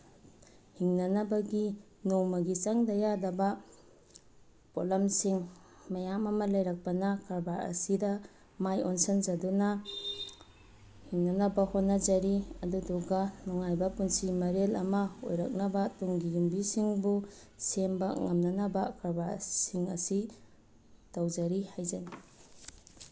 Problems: background sounds at intervals